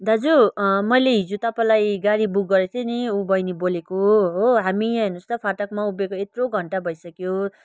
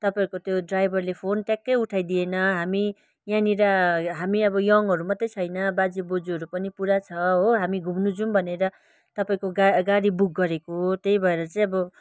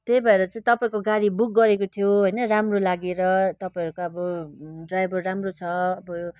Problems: continuous background conversations